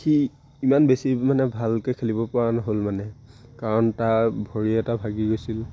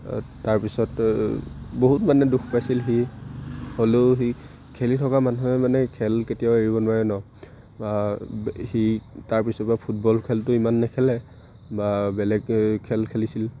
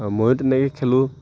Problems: none marked